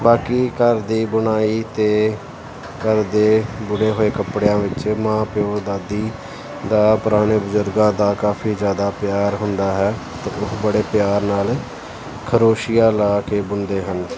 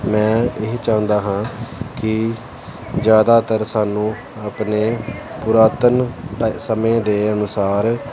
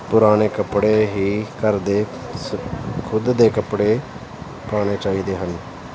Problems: continuous background conversations